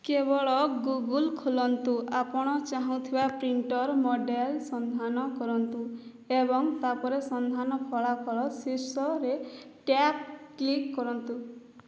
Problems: none marked